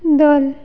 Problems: echo